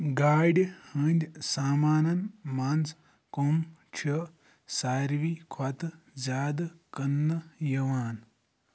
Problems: none marked